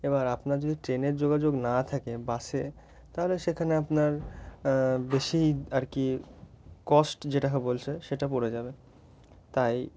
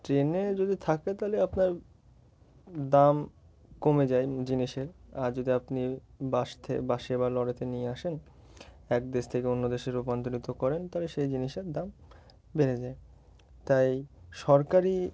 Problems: background sounds at intervals